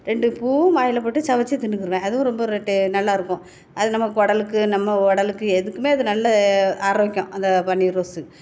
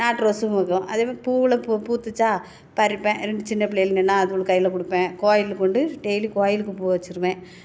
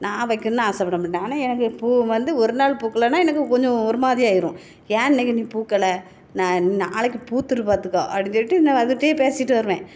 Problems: none marked